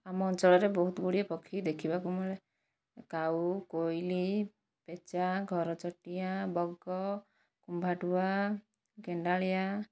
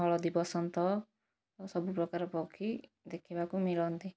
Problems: low volume